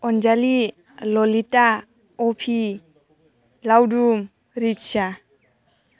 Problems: constant background noise